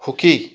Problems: background sounds at intervals